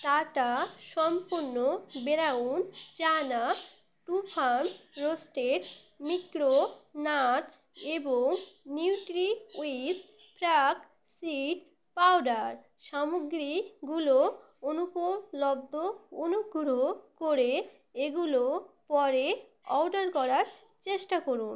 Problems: constant background noise